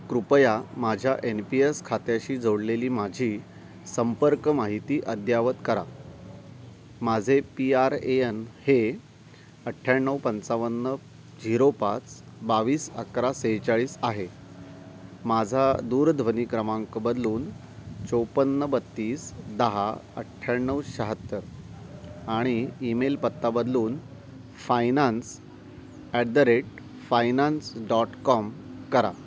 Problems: none marked